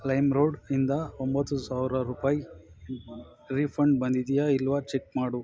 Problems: background sounds at intervals